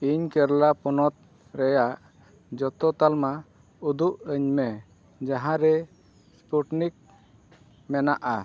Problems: none marked